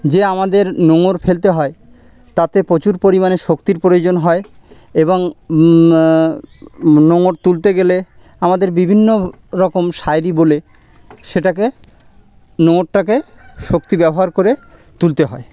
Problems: none marked